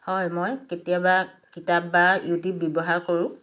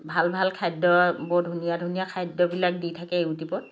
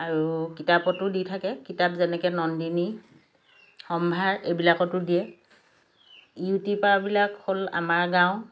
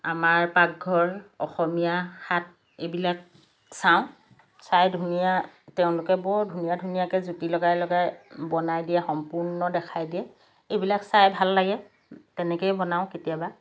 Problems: background sounds at intervals